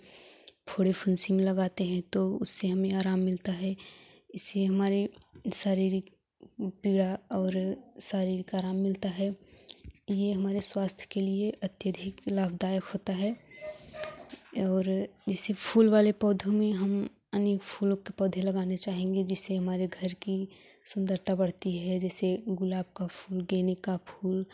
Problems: none marked